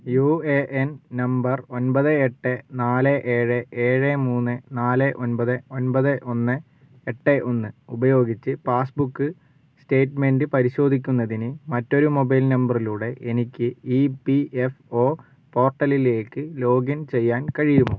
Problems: none marked